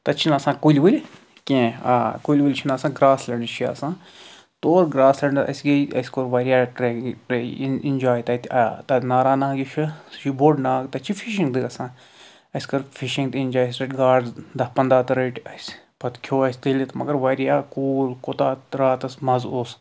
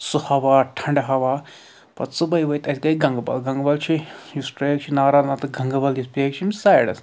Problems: none marked